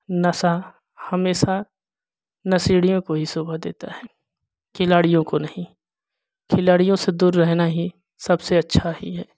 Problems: none marked